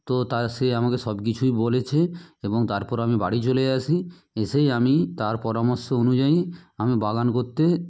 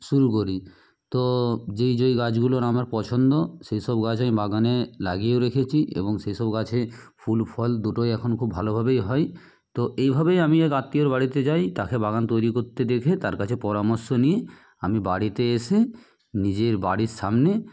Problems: background sounds at intervals